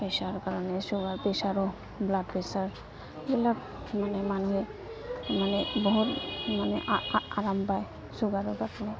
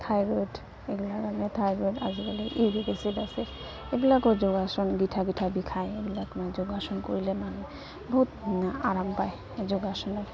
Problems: constant background noise